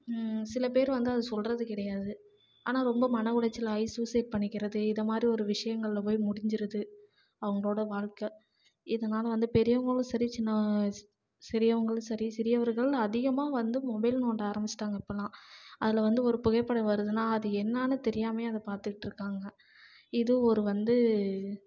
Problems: none marked